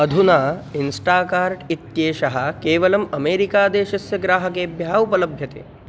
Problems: background sounds at intervals